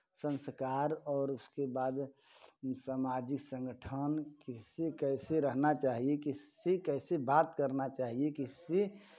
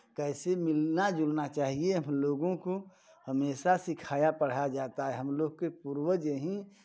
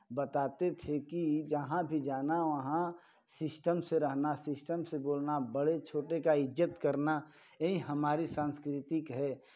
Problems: background sounds at intervals